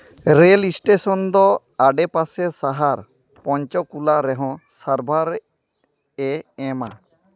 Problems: none marked